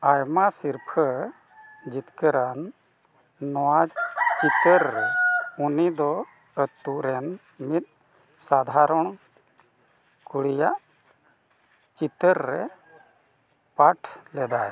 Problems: constant background noise